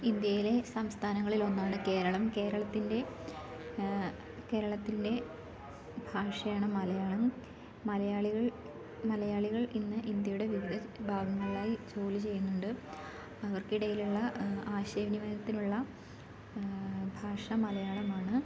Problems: background conversations at intervals